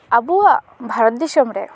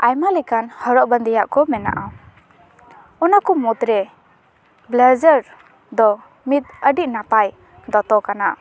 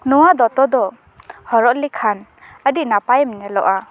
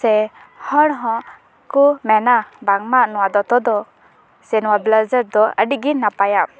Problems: background conversations at intervals